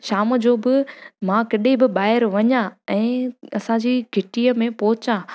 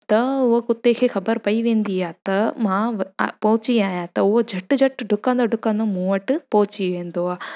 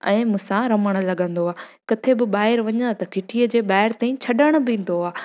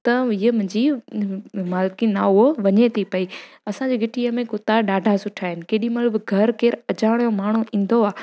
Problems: background sounds at intervals